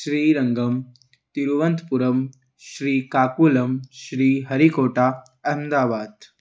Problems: none marked